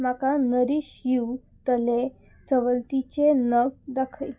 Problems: none marked